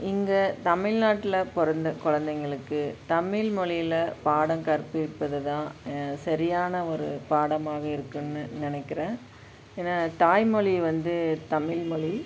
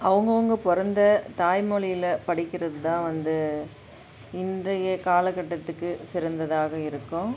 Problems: background sounds at intervals